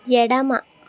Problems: constant background noise